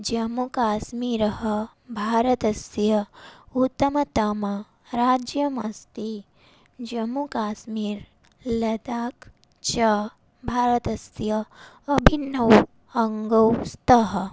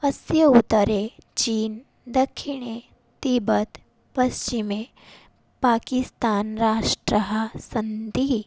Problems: none marked